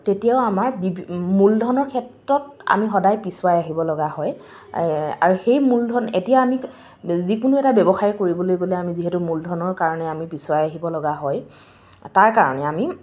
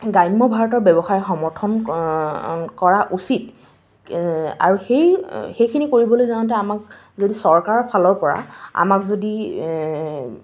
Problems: none marked